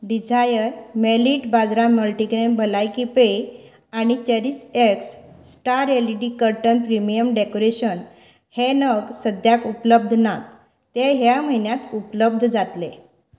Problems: background sounds at intervals